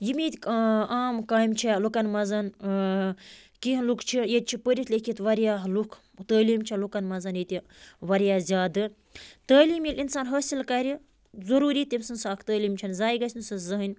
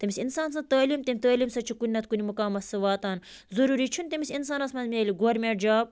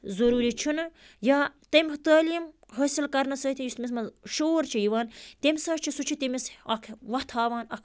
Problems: background sounds at intervals